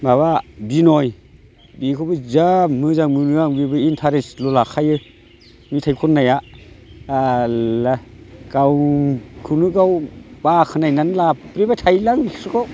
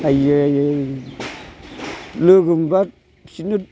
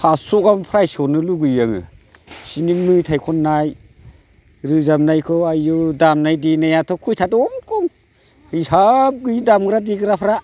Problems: constant background noise